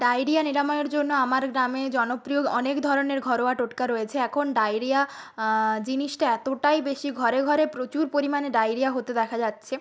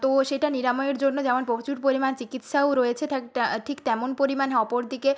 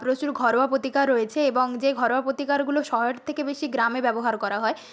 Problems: none marked